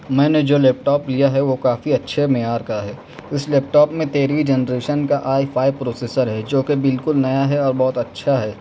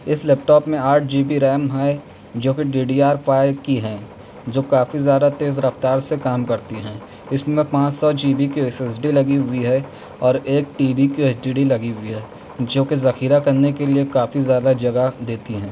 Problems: none marked